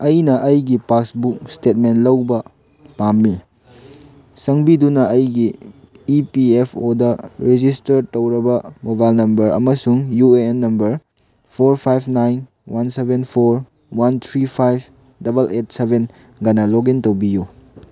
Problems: none marked